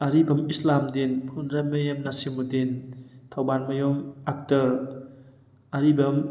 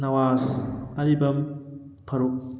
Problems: background sounds at intervals